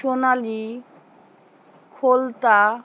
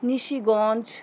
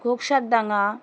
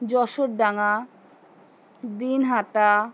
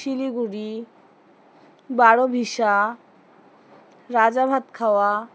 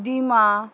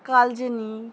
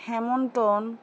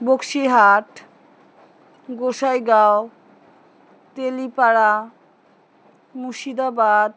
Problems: none marked